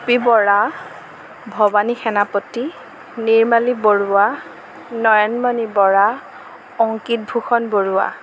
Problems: none marked